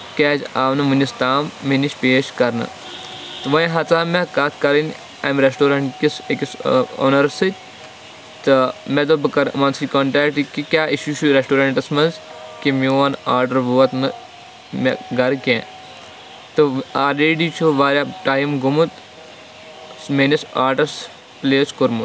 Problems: constant background noise, background conversations at intervals